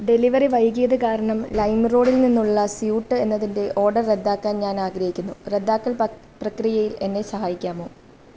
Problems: background sounds at intervals